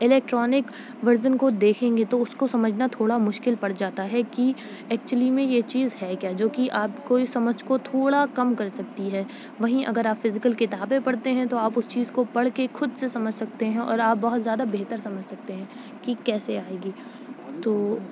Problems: none marked